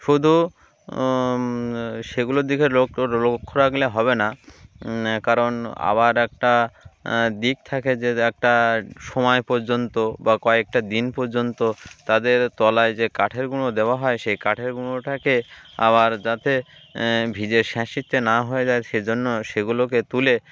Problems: none marked